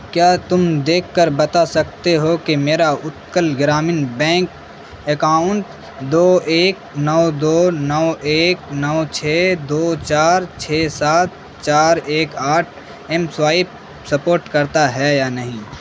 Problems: constant background noise